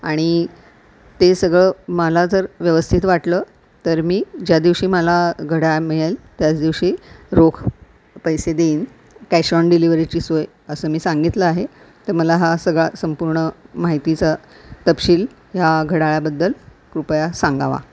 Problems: constant background noise